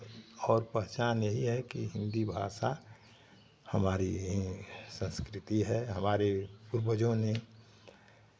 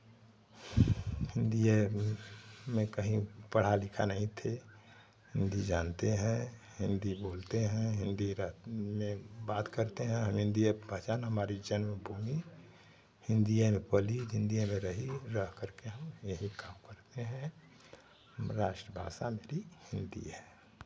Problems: constant background noise